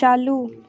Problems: constant background noise